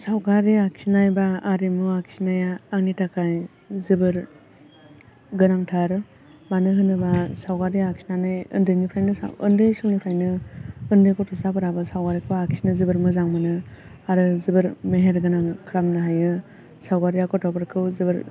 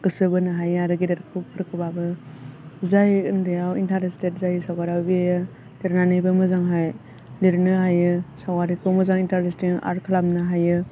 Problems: low volume